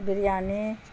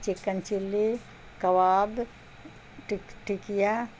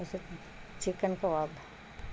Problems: constant background noise